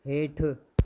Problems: none marked